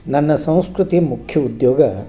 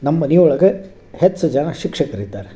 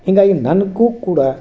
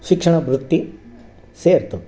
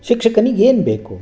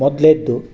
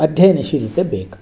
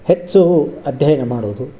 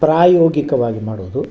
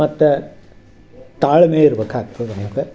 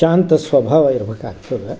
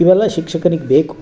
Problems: none marked